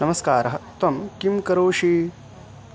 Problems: constant background noise